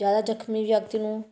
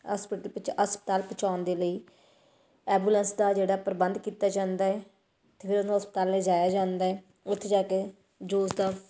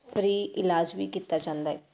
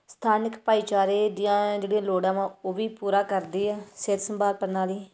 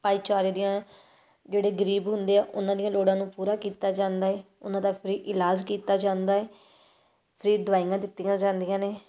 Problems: none marked